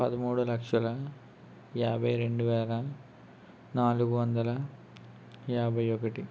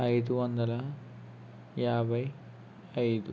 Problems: constant background noise